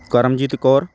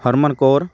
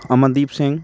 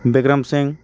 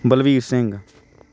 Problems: constant background noise